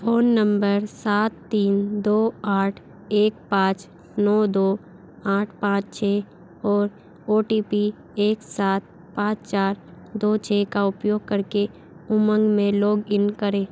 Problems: constant background noise